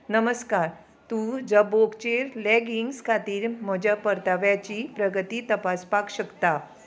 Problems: constant background noise